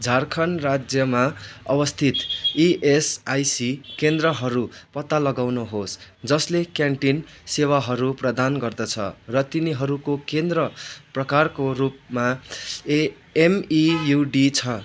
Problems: constant background noise